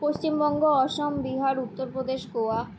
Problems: none marked